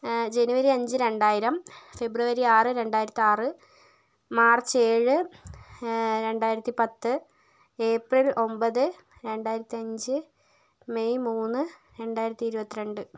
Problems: none marked